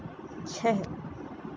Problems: constant background noise